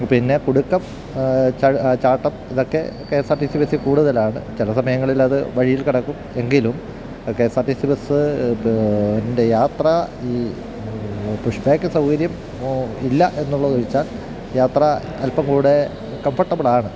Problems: background sounds at intervals